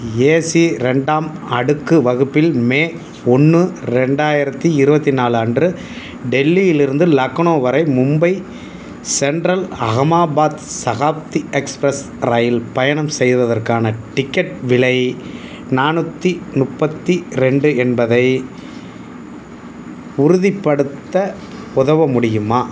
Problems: constant background noise